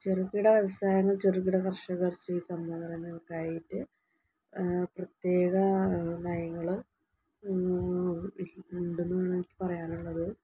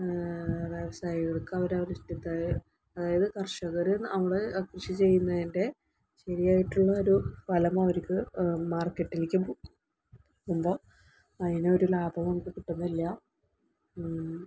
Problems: low volume